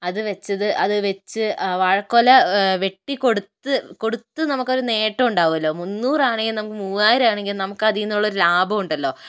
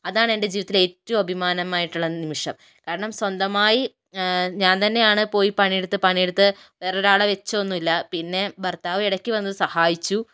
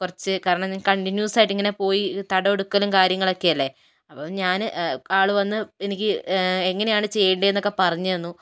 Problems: none marked